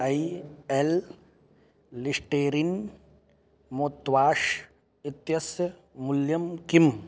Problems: none marked